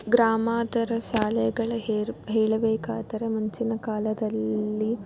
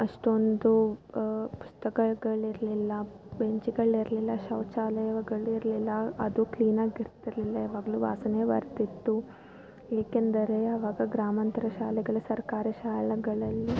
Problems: background sounds at intervals